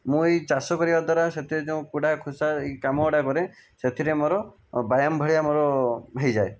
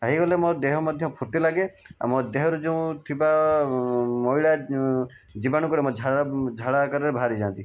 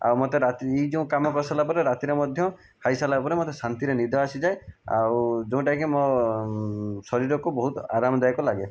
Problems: background sounds at intervals